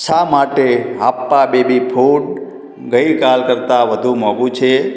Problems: background conversations at intervals